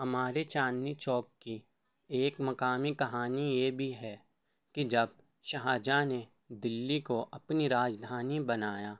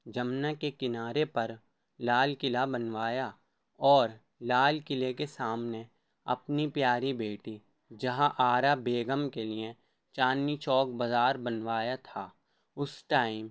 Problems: none marked